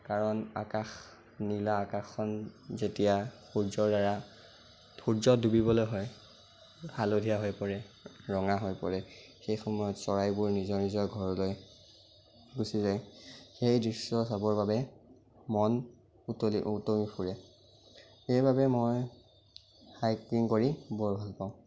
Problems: constant background noise